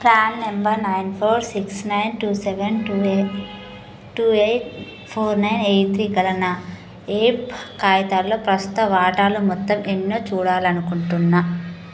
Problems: constant background noise